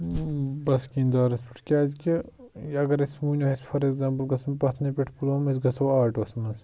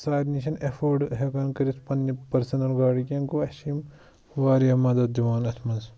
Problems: none marked